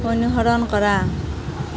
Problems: constant background noise